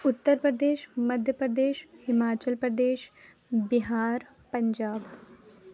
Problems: none marked